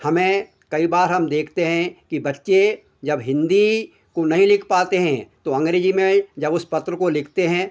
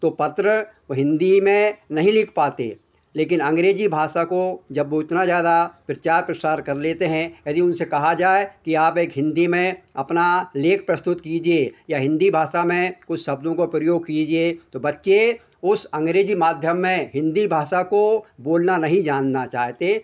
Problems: none marked